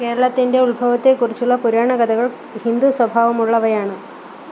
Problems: none marked